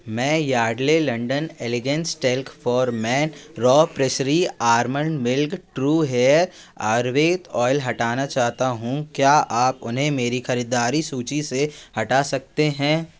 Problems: constant background noise